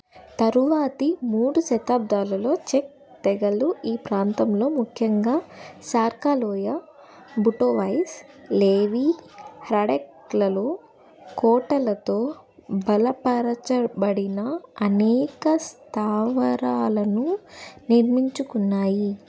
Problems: constant background noise